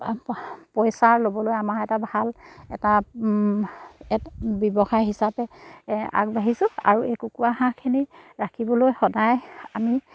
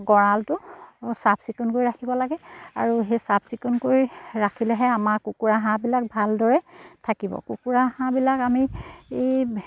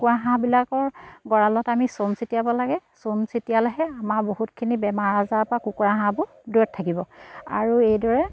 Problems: none marked